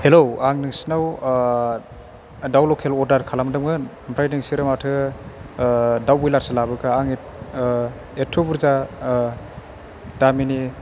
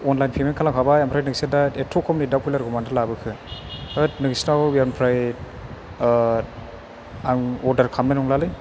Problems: background sounds at intervals